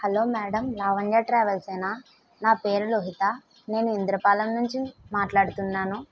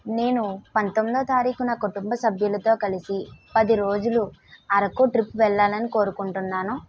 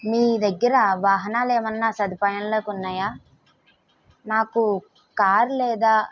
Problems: none marked